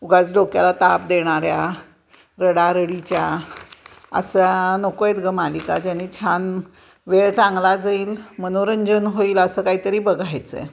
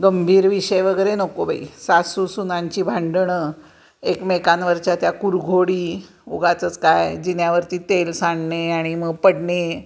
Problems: constant background noise, continuous background conversations